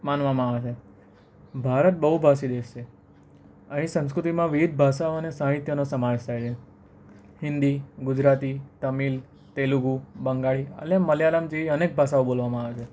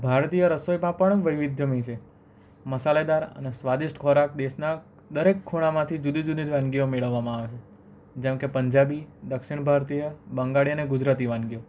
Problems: none marked